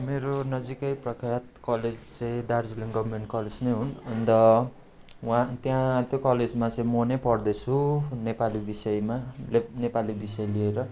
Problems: constant background noise